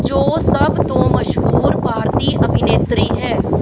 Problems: constant background noise